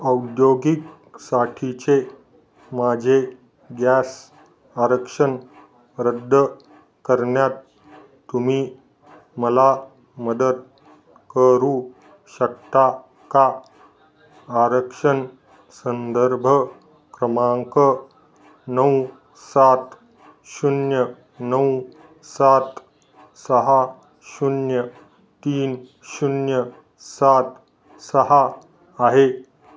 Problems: none marked